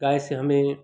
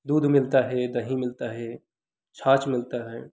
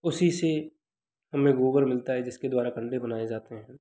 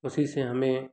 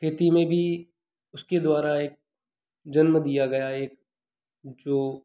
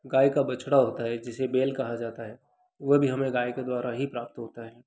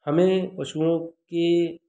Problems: none marked